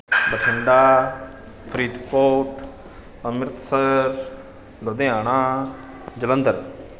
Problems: background sounds at intervals